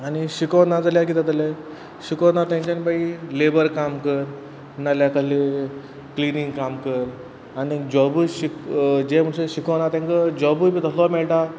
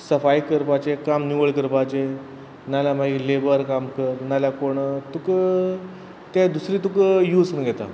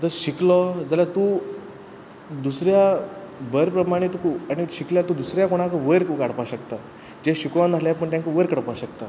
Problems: none marked